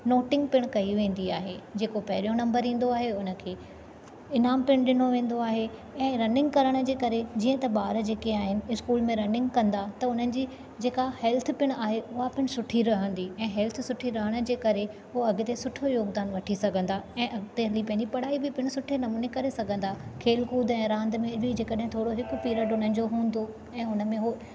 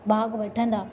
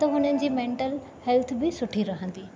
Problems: constant background noise